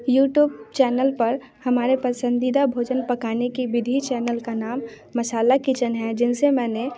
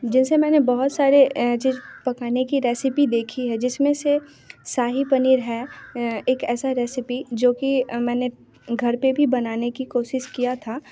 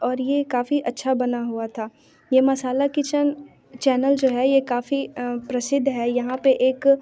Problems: constant background noise, background conversations at intervals